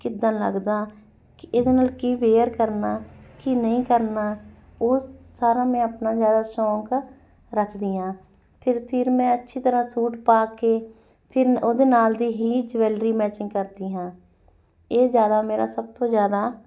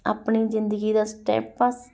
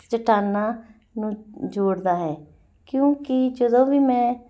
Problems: none marked